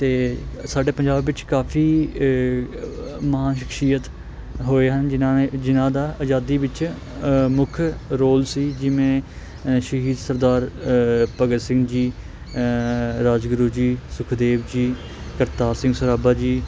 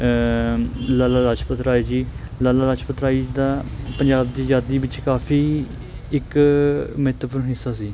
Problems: constant background noise